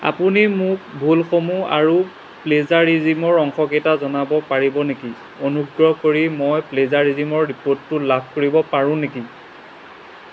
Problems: constant background noise